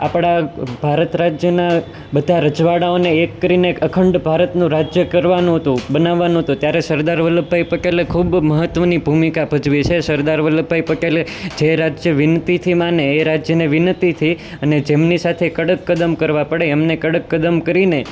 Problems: constant background noise